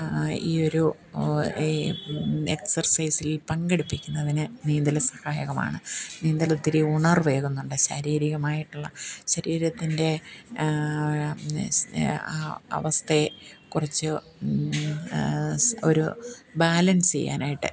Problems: none marked